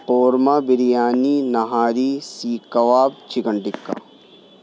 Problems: background sounds at intervals